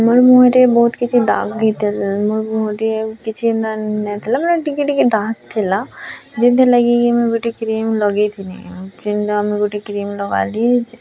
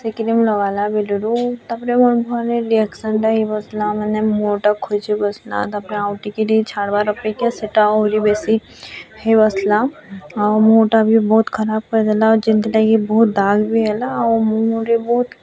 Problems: none marked